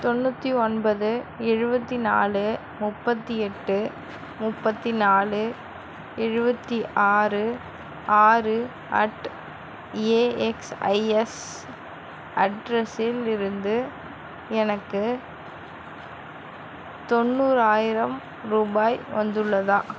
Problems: constant background noise